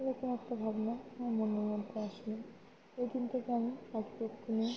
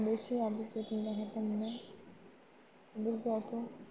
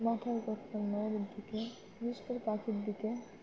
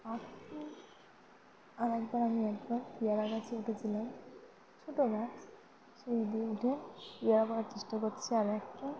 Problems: constant background noise, background conversations at intervals